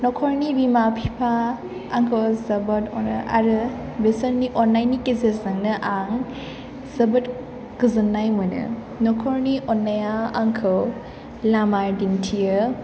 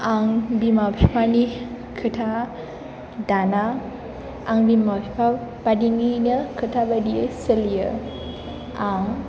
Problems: background sounds at intervals